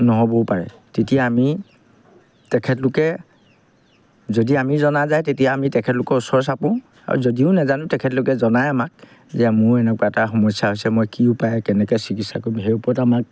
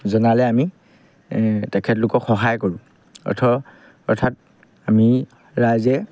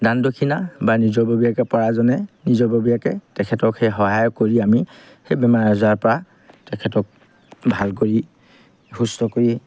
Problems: background sounds at intervals